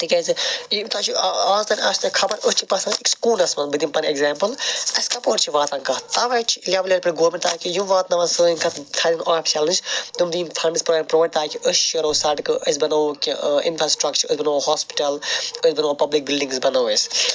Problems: none marked